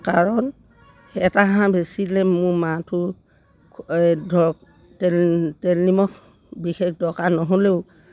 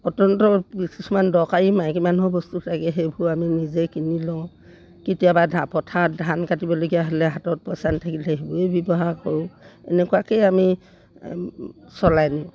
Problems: none marked